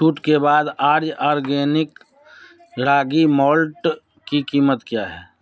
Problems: none marked